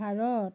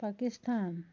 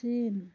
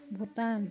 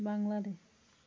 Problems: none marked